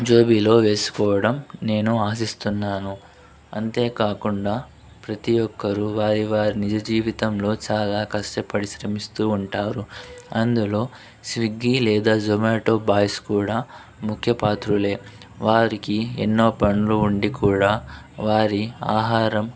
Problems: constant background noise, background conversations at intervals